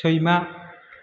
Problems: constant background noise